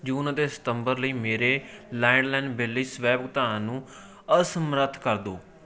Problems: continuous background conversations